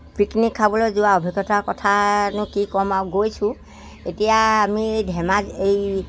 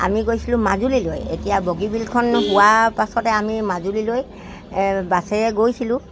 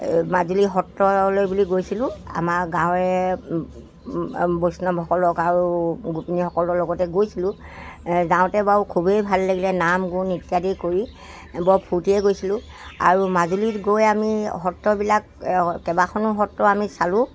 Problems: constant background noise